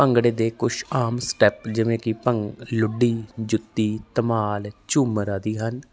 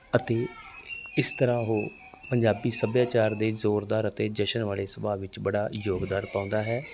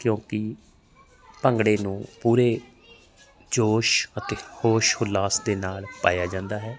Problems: none marked